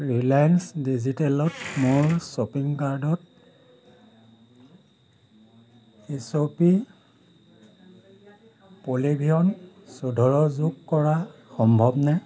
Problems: none marked